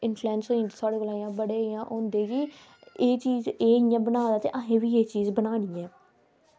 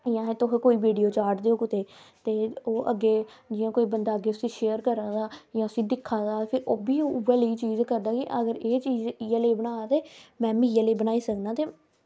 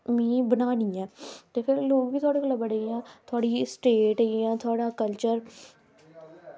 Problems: constant background noise